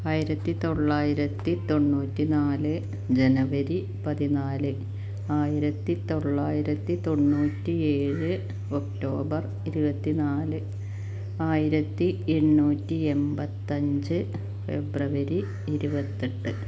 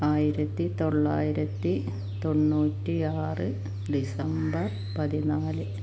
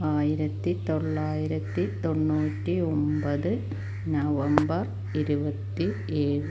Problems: constant background noise